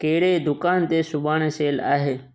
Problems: echo